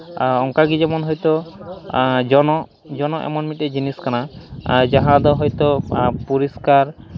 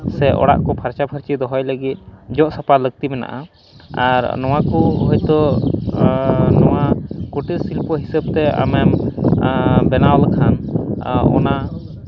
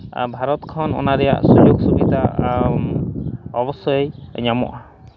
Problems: background sounds at intervals